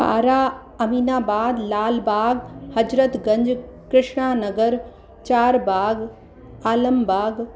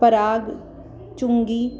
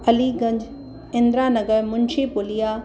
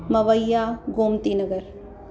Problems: constant background noise, echo